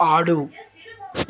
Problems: background sounds at intervals